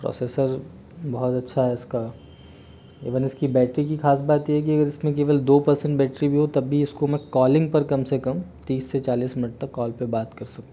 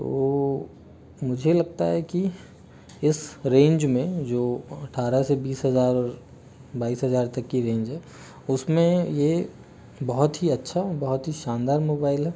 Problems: none marked